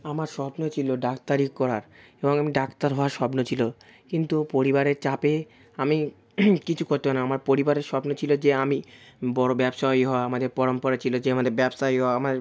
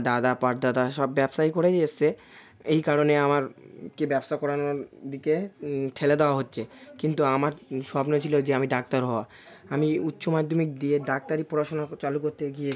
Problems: background sounds at intervals